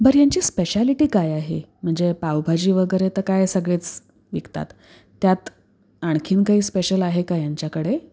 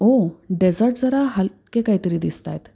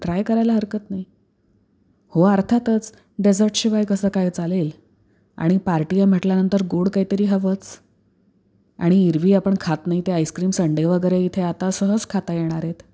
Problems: background sounds at intervals